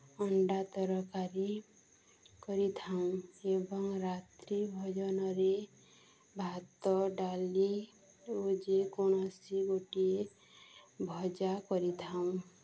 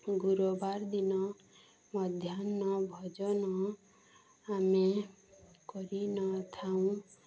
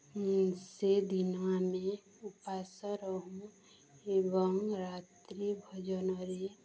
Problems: constant background noise, continuous background conversations